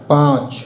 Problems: echo